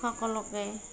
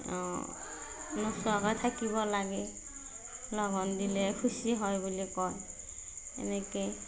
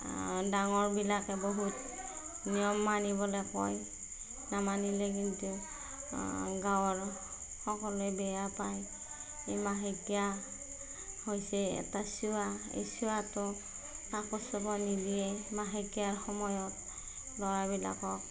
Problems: none marked